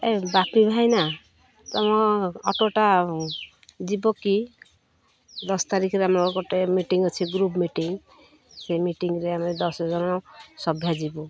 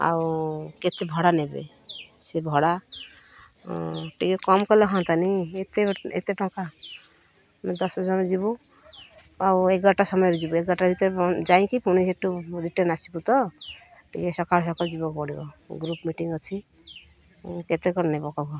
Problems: constant background noise